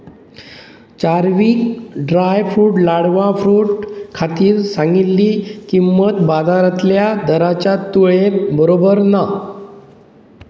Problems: constant background noise